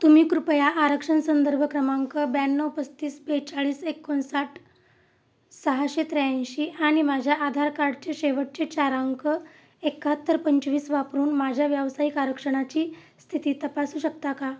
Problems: constant background noise, background conversations at intervals